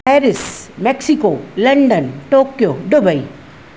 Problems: none marked